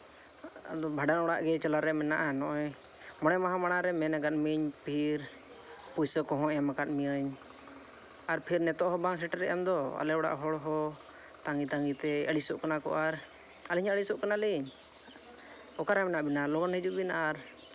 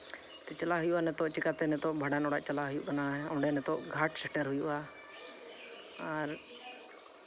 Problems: constant background noise, background conversations at intervals